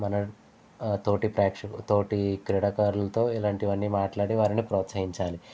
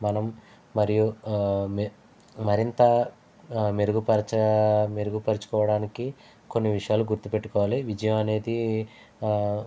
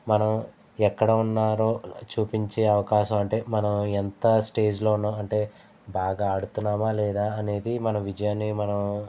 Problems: constant background noise